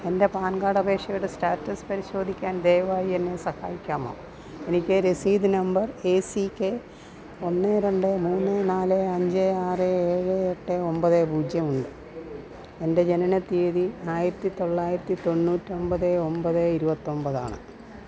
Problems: background sounds at intervals